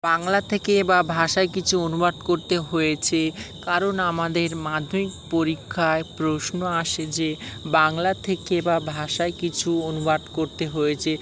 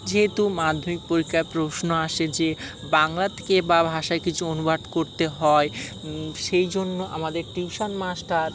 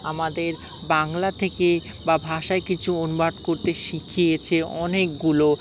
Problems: constant background noise, background conversations at intervals